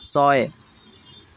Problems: none marked